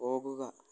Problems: low volume